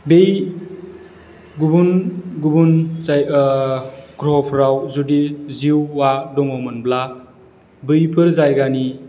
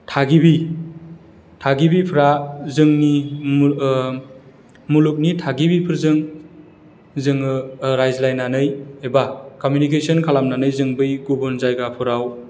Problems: none marked